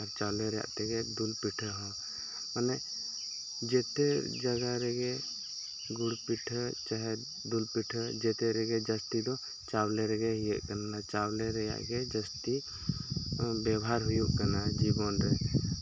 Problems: none marked